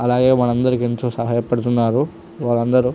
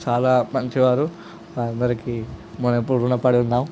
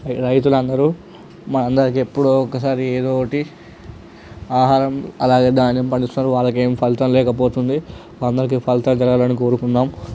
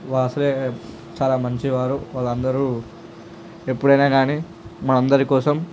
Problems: constant background noise, background conversations at intervals